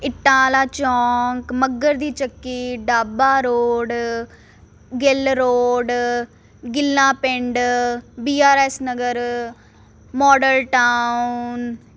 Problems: constant background noise